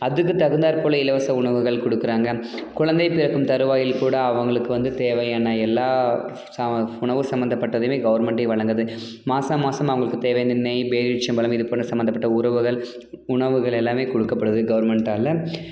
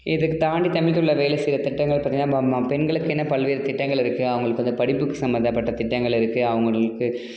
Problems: background sounds at intervals